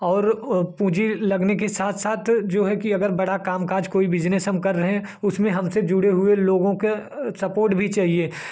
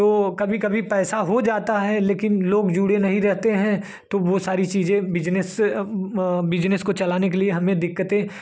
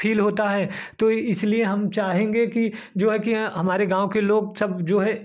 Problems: constant background noise